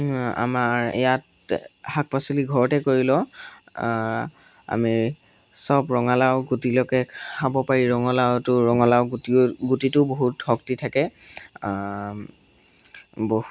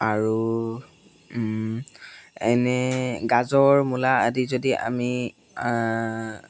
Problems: background sounds at intervals